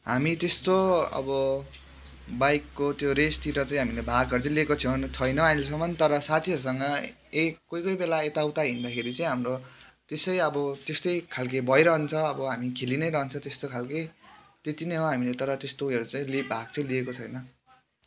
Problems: background conversations at intervals